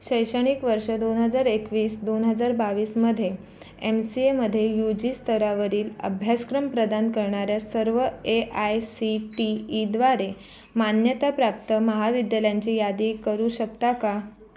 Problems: constant background noise, continuous background conversations